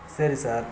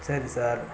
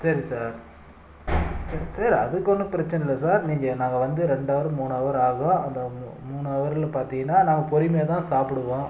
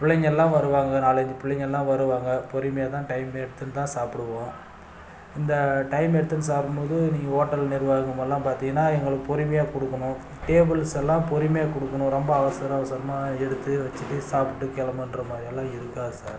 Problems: background sounds at intervals